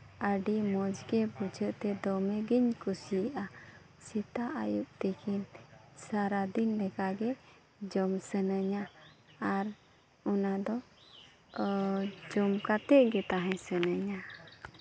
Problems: background sounds at intervals, background conversations at intervals